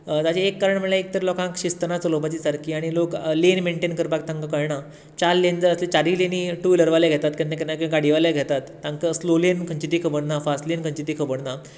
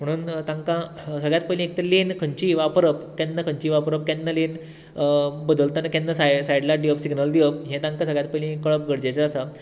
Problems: none marked